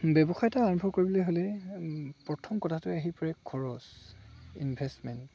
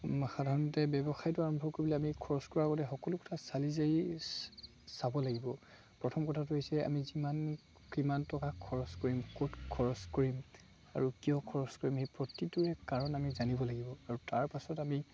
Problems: constant background noise, background conversations at intervals